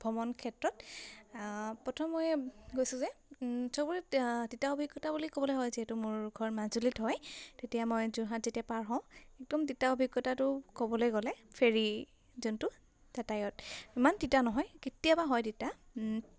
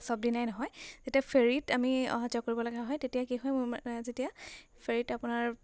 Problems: none marked